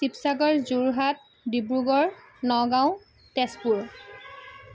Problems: background sounds at intervals